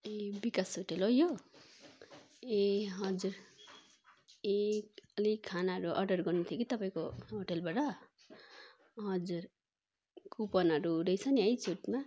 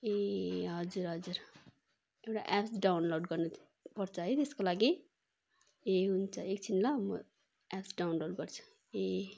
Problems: constant background noise